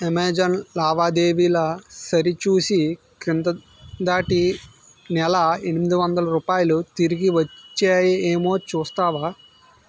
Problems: background sounds at intervals